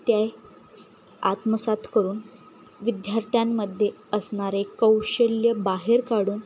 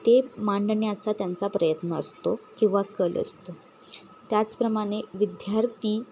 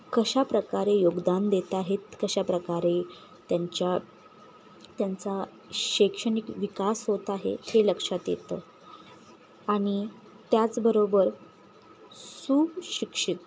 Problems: none marked